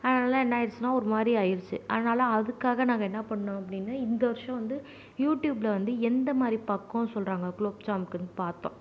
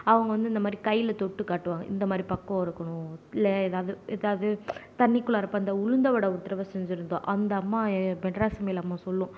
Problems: none marked